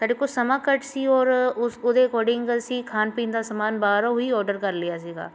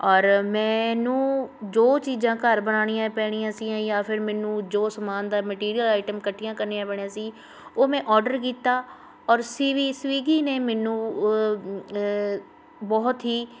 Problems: constant background noise